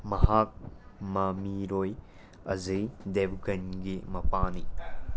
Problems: constant background noise